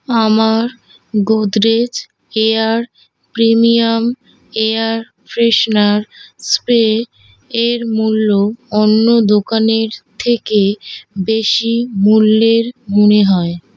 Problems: none marked